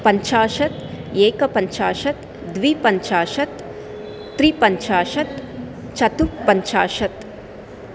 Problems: constant background noise